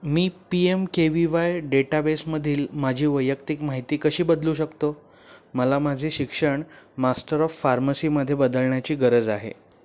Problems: none marked